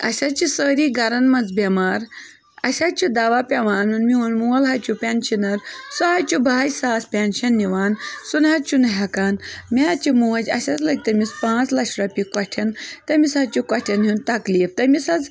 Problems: continuous background conversations